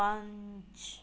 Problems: background sounds at intervals